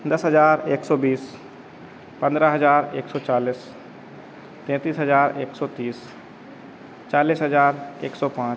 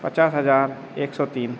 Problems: constant background noise